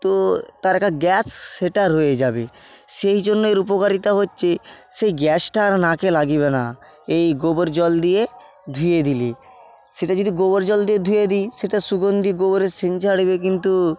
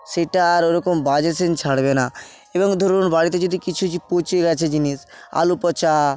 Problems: constant background noise